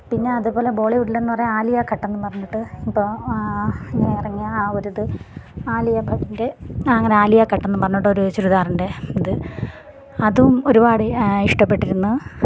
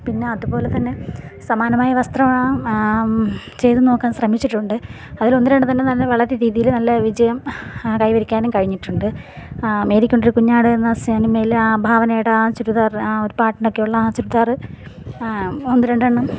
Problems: background sounds at intervals, background conversations at intervals